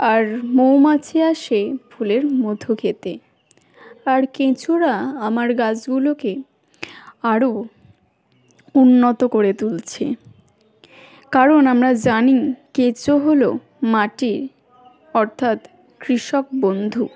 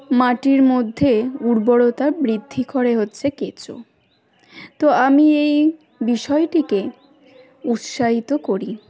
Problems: background sounds at intervals, continuous background conversations